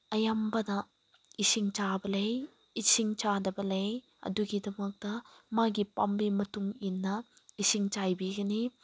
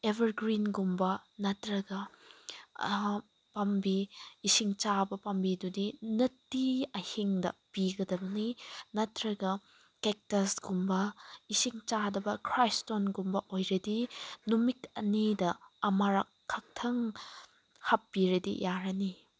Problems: none marked